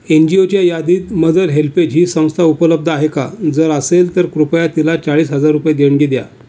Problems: none marked